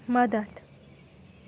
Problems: background sounds at intervals